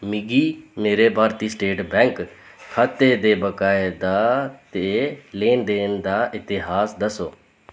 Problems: none marked